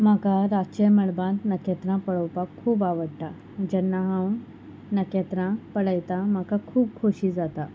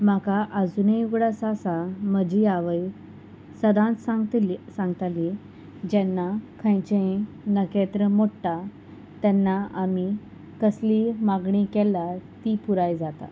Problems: none marked